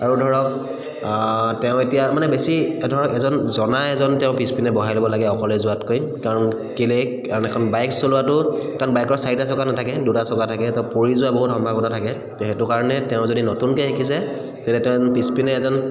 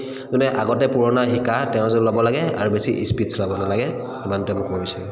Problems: echo